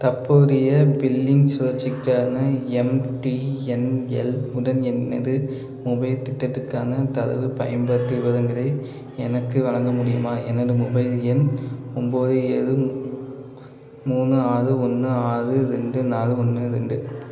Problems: constant background noise